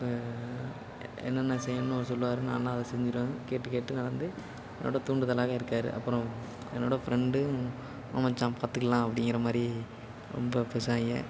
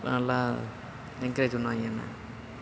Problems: constant background noise